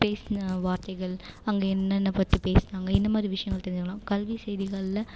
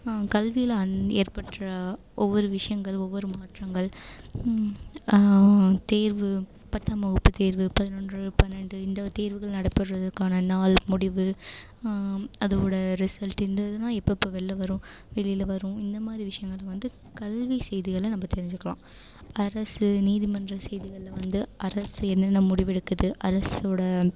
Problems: constant background noise